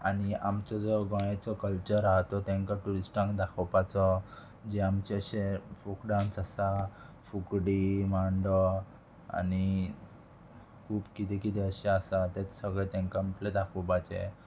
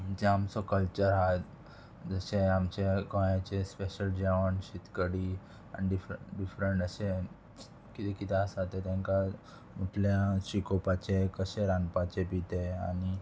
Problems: constant background noise